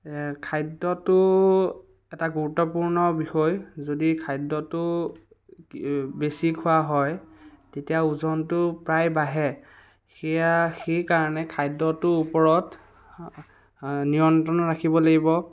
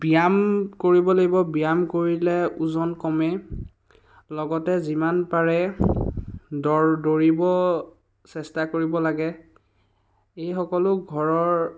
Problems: background sounds at intervals